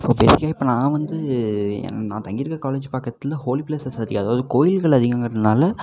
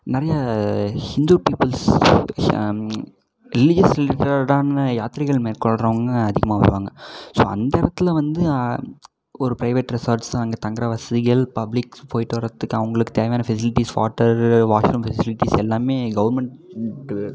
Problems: background conversations at intervals